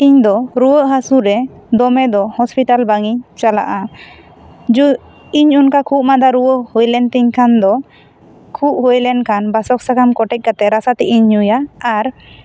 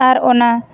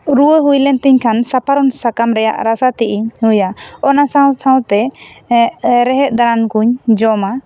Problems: background sounds at intervals